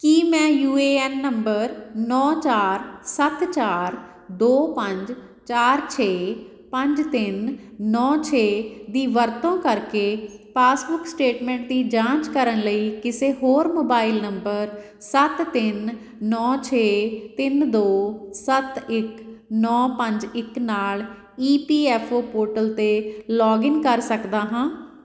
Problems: none marked